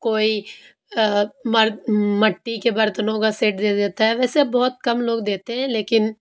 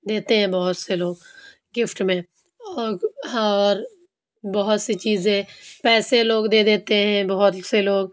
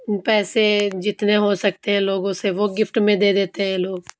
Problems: background sounds at intervals